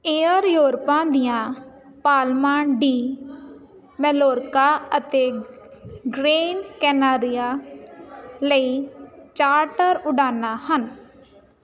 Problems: continuous background conversations